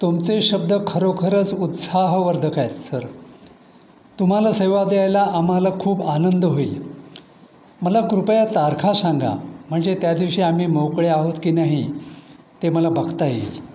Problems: none marked